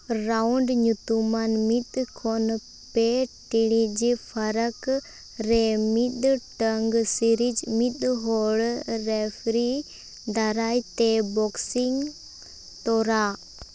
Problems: background sounds at intervals